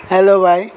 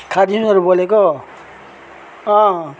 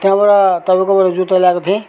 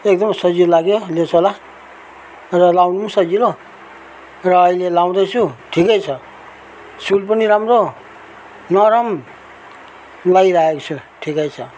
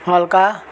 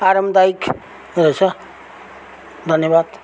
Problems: constant background noise